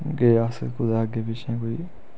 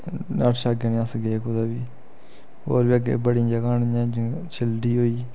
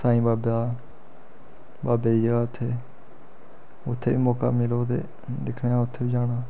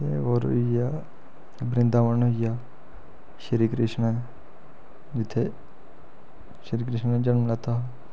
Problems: none marked